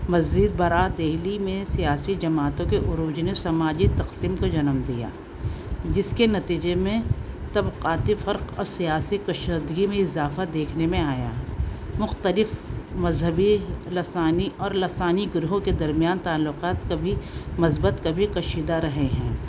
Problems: constant background noise, continuous background conversations